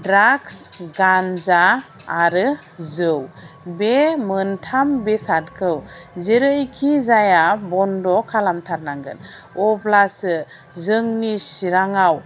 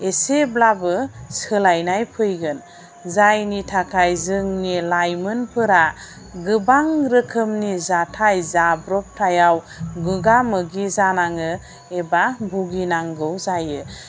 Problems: none marked